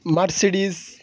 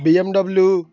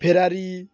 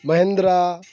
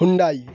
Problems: none marked